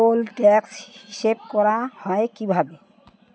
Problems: continuous background conversations